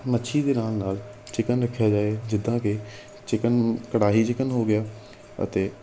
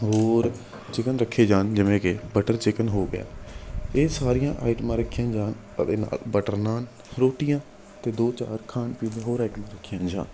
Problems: constant background noise